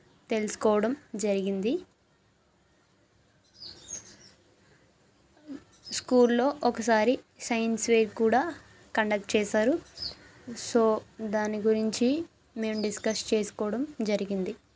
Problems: background sounds at intervals